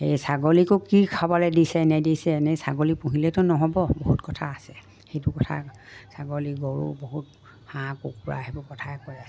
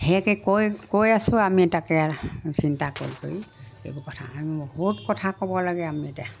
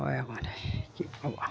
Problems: none marked